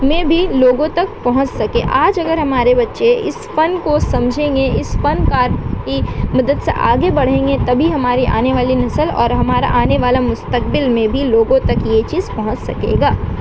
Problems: constant background noise